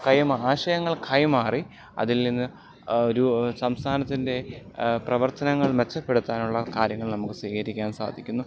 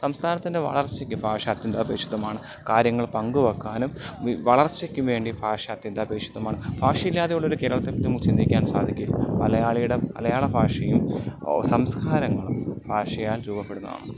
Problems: none marked